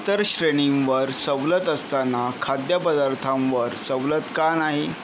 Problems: none marked